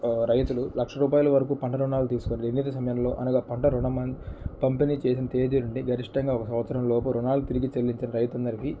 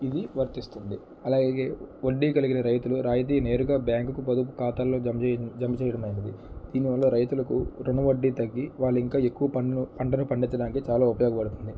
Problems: background sounds at intervals, low volume